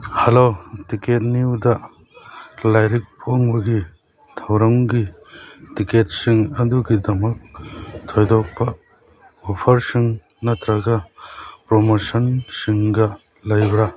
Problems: background sounds at intervals